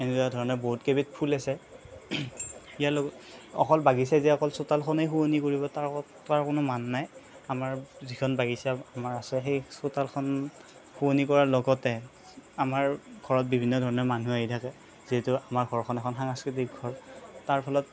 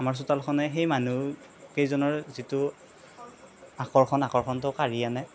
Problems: constant background noise